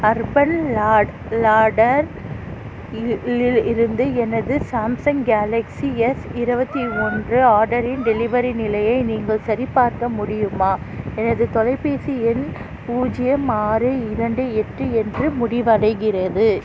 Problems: constant background noise, background conversations at intervals